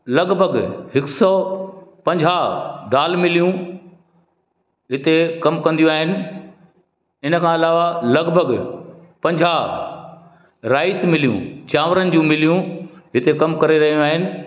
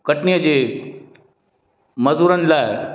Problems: echo